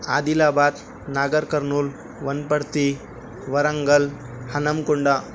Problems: constant background noise